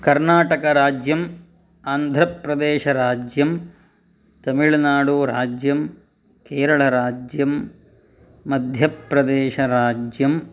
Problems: none marked